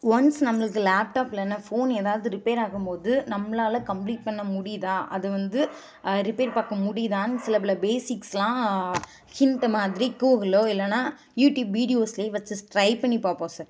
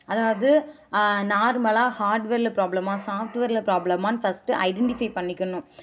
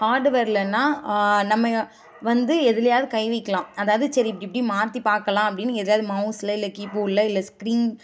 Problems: background sounds at intervals